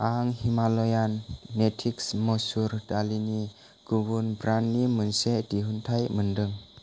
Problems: constant background noise